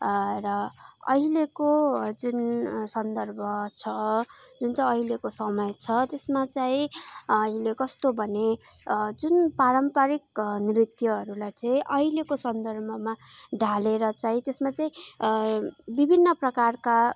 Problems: background conversations at intervals